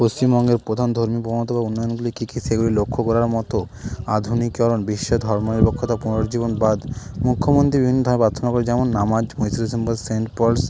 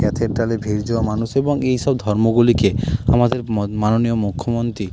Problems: none marked